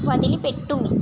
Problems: constant background noise